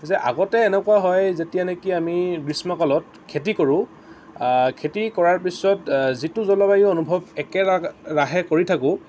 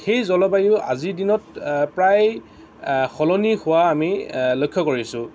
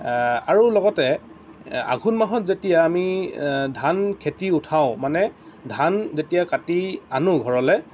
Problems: none marked